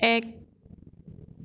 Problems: none marked